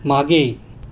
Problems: none marked